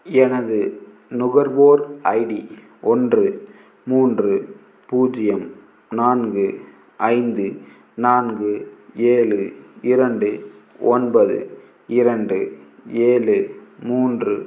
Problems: background sounds at intervals